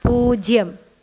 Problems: none marked